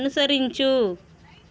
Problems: constant background noise, continuous background conversations